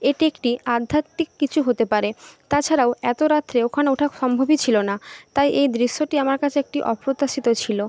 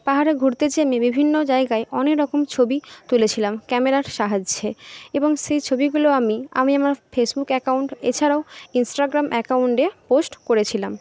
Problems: none marked